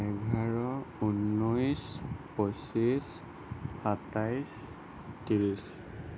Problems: constant background noise